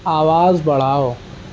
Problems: constant background noise